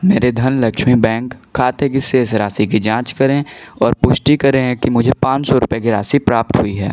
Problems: constant background noise